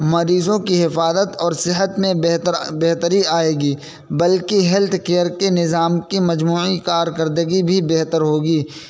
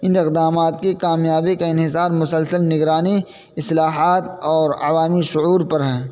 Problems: constant background noise